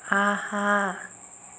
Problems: none marked